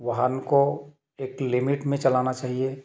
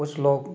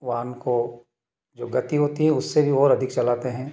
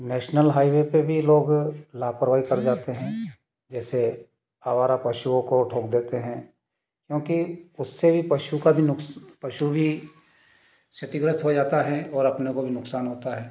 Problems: background sounds at intervals